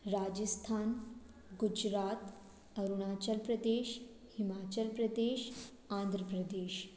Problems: background sounds at intervals